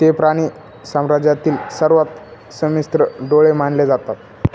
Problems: constant background noise, background conversations at intervals